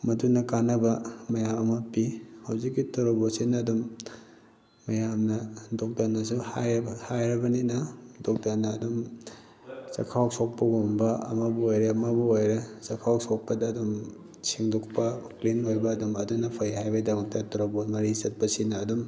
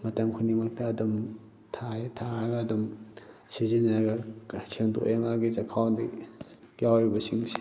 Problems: background sounds at intervals